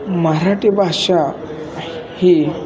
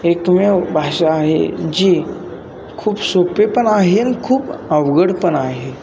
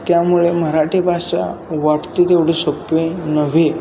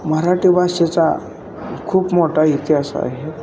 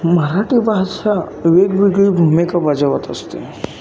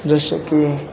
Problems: constant background noise